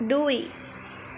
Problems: constant background noise